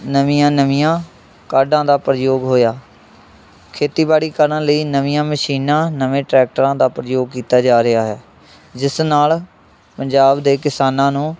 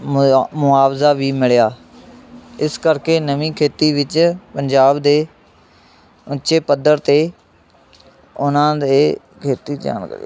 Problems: constant background noise, continuous background conversations